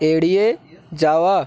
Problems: none marked